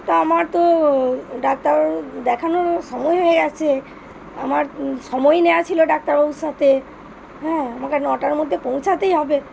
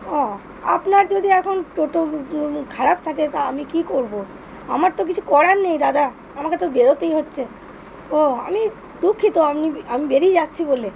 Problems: constant background noise